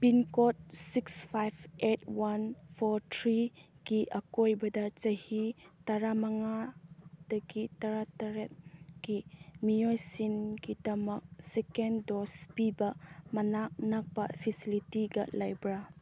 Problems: none marked